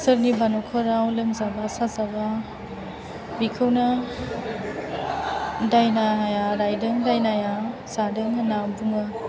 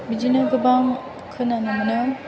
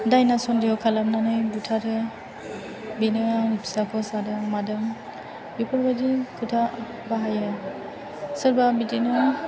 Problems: continuous background conversations